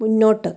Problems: none marked